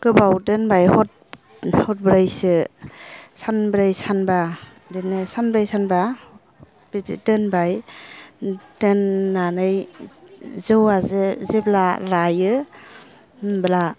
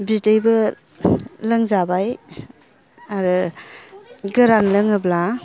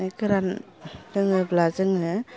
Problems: none marked